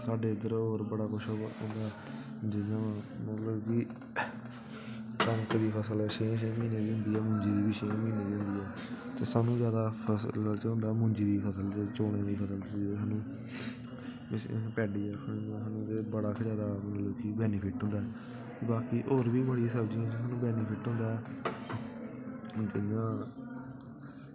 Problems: constant background noise, background conversations at intervals